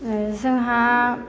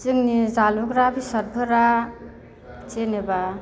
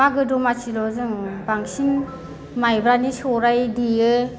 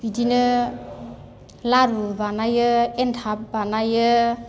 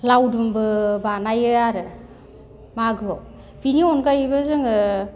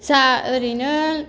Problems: none marked